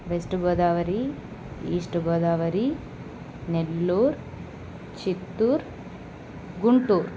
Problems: none marked